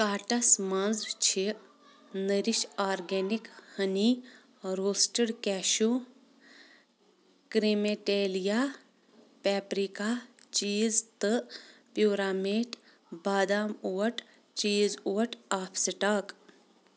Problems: background conversations at intervals